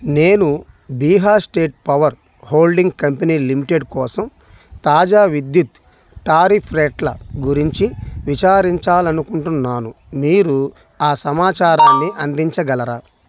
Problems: background sounds at intervals